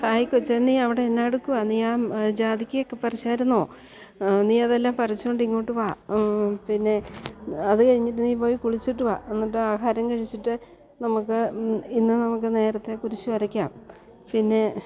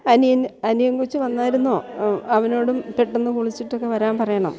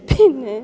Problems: background sounds at intervals, background conversations at intervals